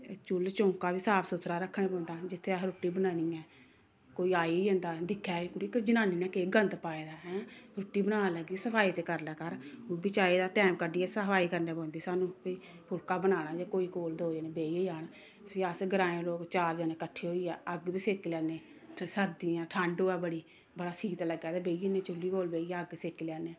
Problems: constant background noise